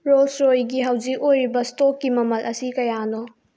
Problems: low volume